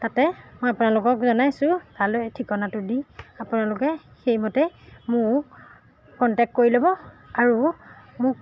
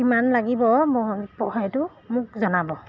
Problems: none marked